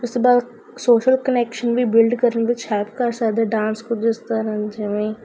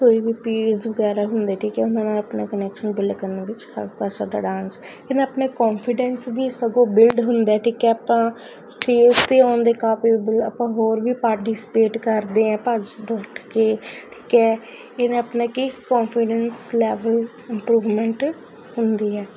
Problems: constant background noise